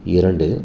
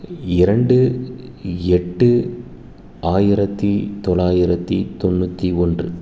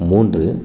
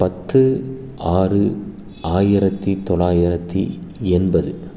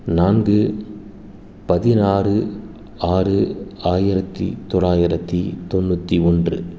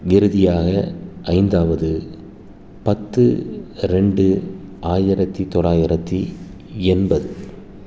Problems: constant background noise